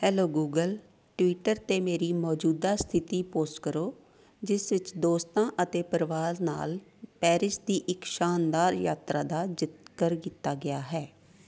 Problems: background sounds at intervals